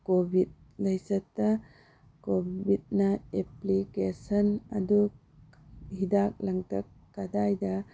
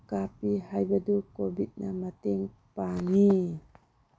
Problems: background sounds at intervals, low volume